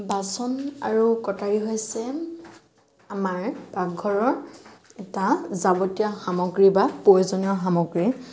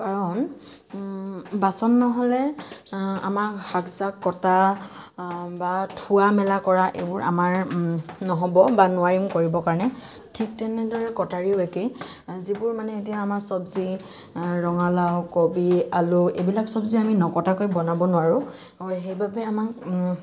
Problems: constant background noise